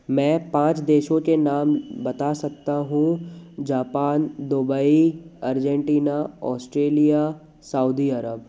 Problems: constant background noise